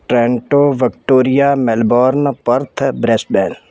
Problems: background sounds at intervals